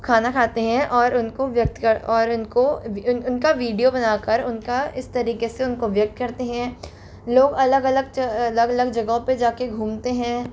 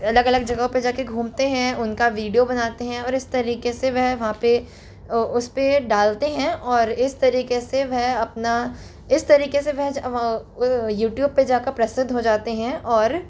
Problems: constant background noise